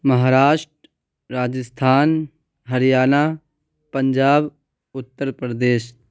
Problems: none marked